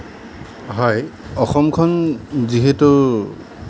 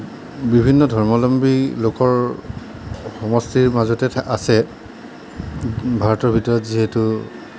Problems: none marked